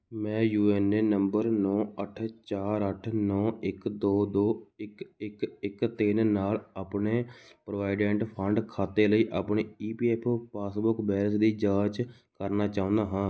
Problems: none marked